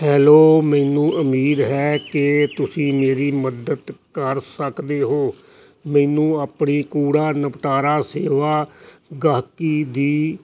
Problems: none marked